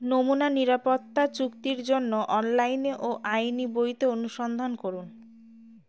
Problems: none marked